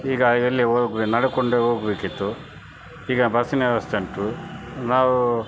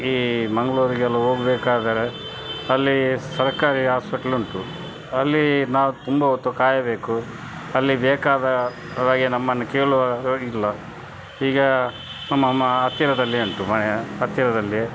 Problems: none marked